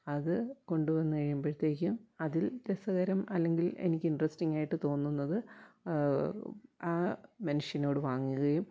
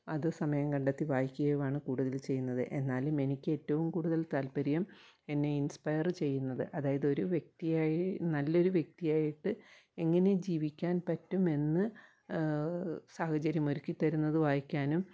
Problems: low volume